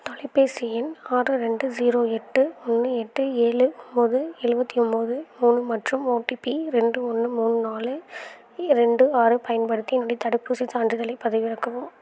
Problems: none marked